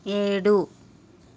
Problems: constant background noise